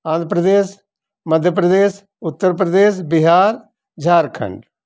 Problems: none marked